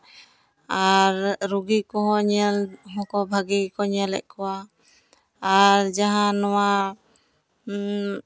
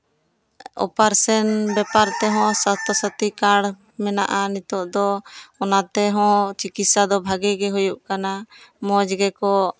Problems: none marked